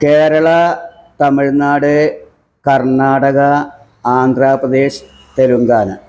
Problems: none marked